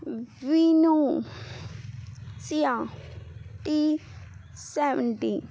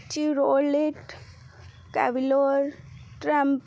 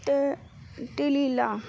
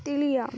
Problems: constant background noise